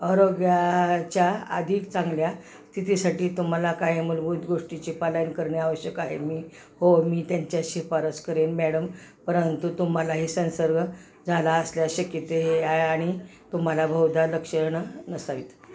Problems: constant background noise